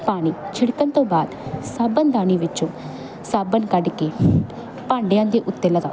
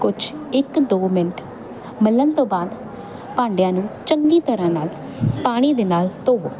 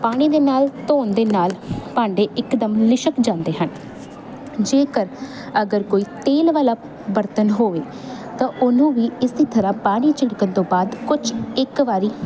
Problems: constant background noise